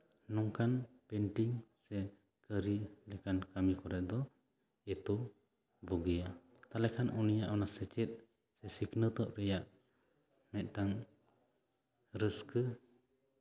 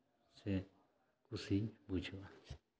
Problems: none marked